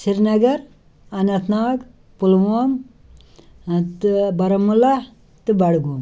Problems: none marked